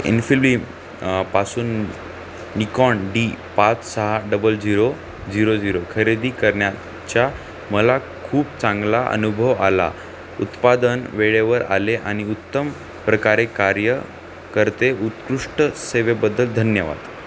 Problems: constant background noise